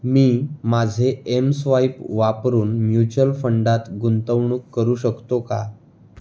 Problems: constant background noise